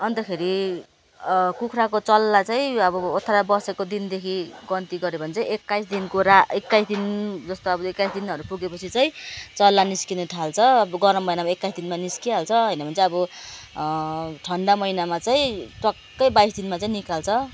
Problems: none marked